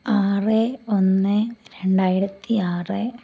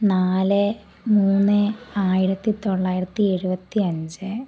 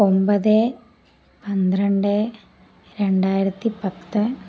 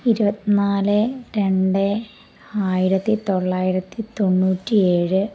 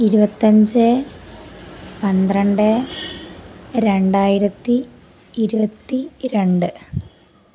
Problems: background sounds at intervals